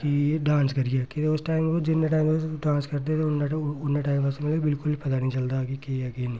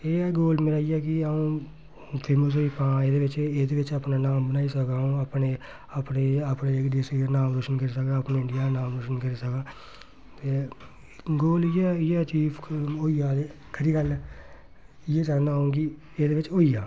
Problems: none marked